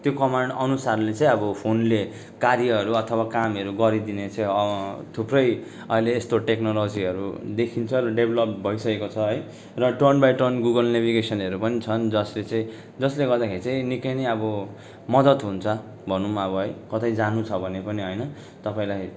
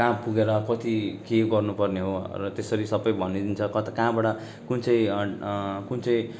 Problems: constant background noise